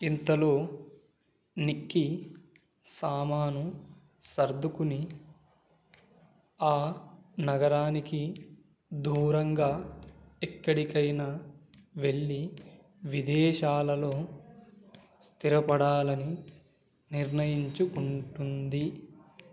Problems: none marked